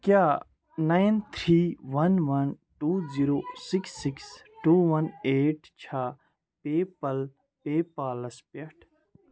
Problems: background conversations at intervals